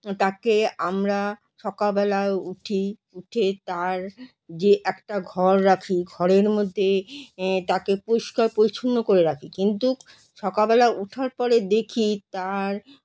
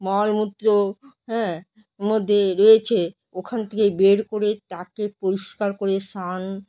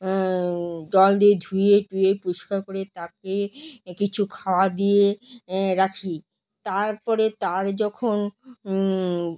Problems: background sounds at intervals